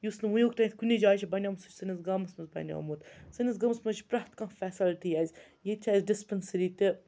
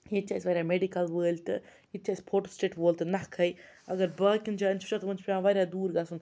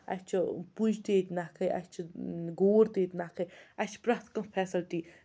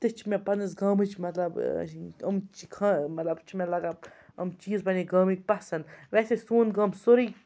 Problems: none marked